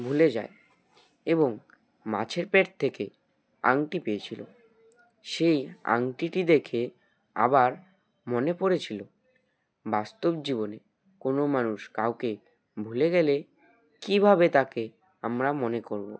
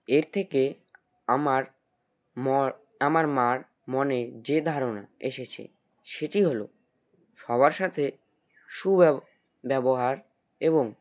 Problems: background sounds at intervals